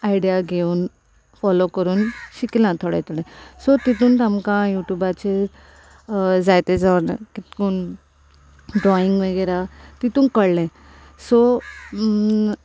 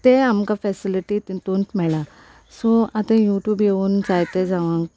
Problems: constant background noise